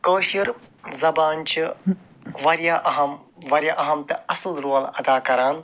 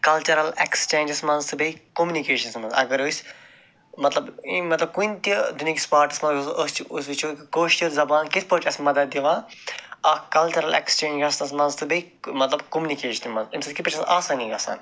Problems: background sounds at intervals, background conversations at intervals